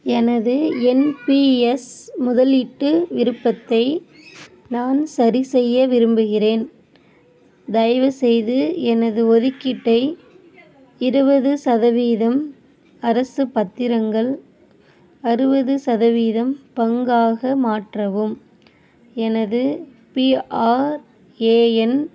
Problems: none marked